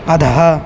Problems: constant background noise